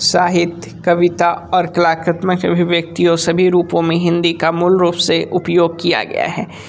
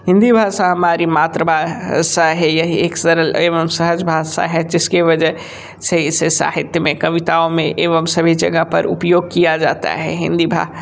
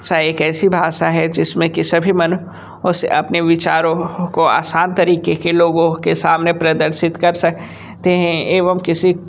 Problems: constant background noise